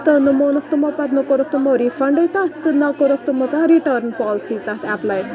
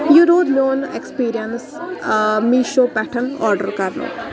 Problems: background sounds at intervals, continuous background conversations